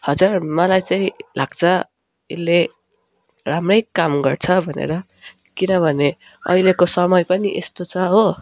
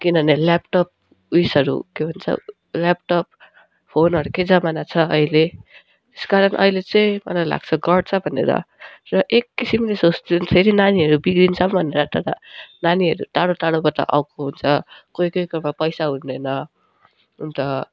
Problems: none marked